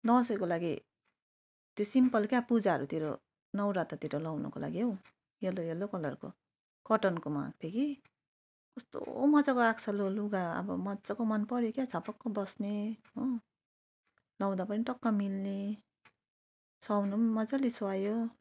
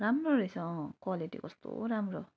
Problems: none marked